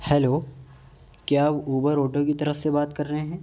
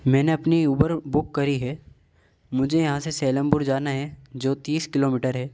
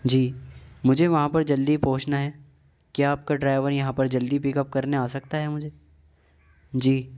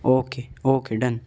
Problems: none marked